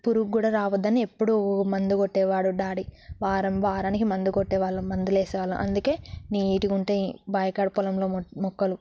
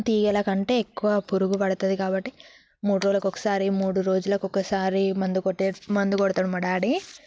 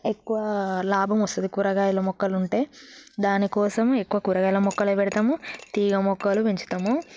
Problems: background sounds at intervals